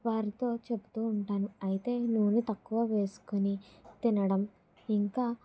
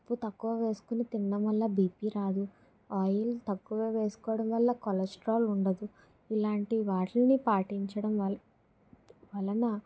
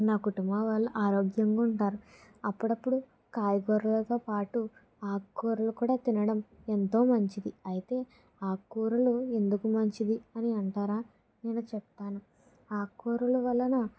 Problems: none marked